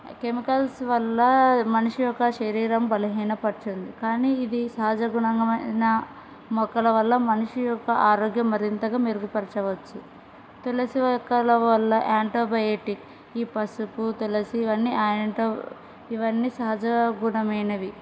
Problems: background sounds at intervals